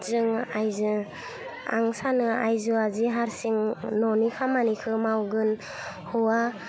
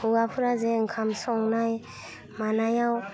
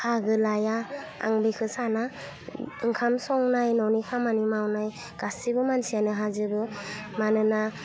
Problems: constant background noise